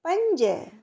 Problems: echo